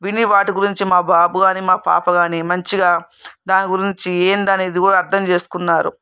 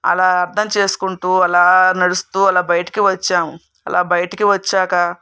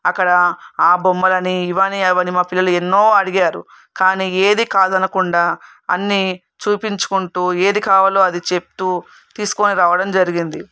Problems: none marked